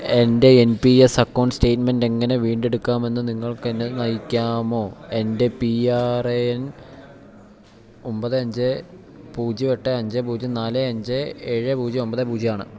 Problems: none marked